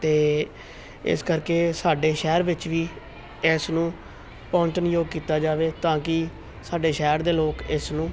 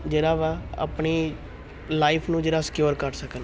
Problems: continuous background conversations